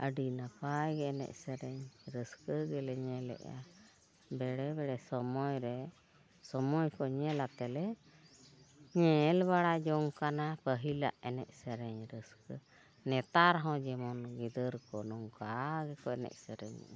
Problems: background sounds at intervals